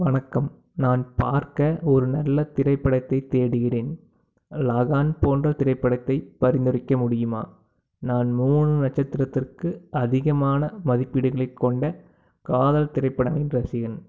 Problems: none marked